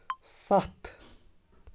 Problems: background sounds at intervals